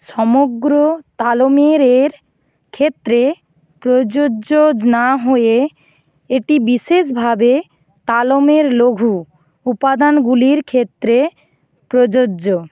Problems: background sounds at intervals